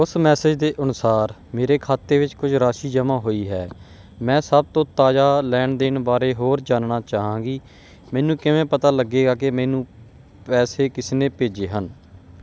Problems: background sounds at intervals